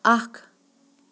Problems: none marked